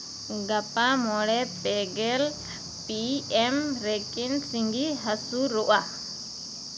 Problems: constant background noise